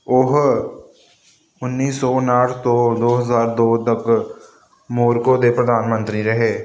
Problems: constant background noise